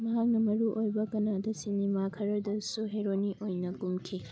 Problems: low volume